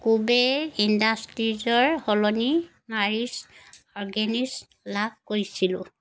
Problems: background sounds at intervals